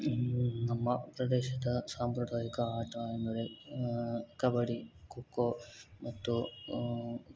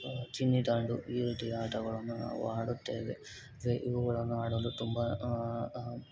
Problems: constant background noise